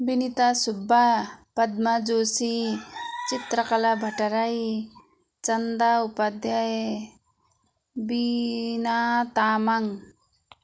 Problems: constant background noise